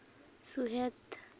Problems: none marked